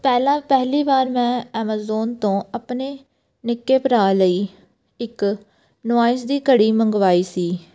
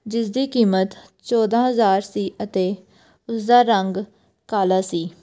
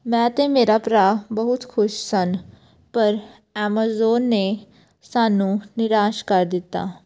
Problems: none marked